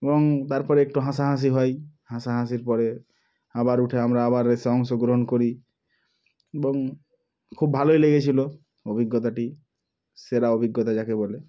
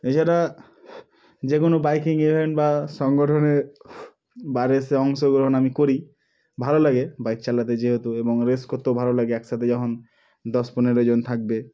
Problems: background sounds at intervals